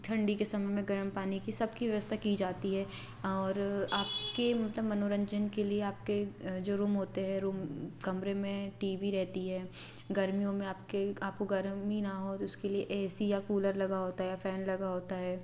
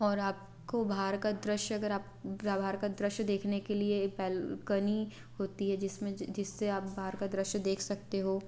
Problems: none marked